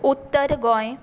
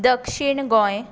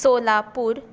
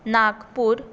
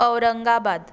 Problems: none marked